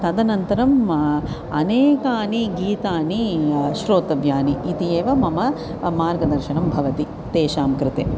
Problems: none marked